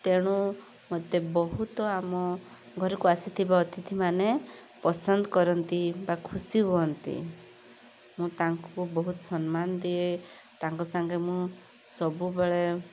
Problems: constant background noise